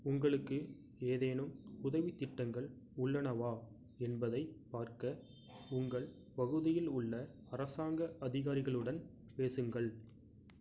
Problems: low volume